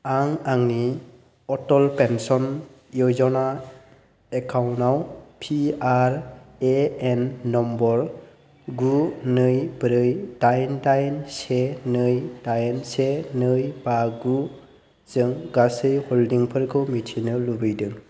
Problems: constant background noise